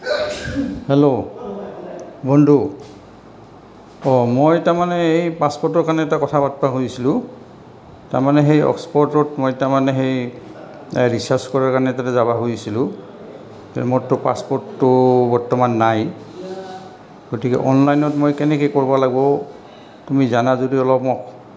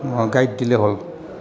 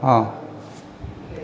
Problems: constant background noise